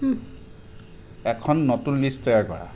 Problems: constant background noise, background conversations at intervals